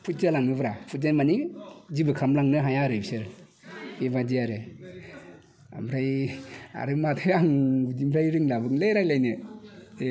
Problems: none marked